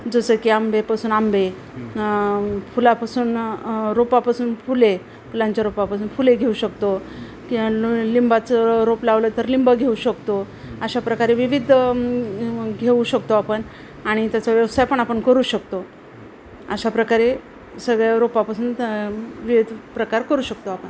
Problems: none marked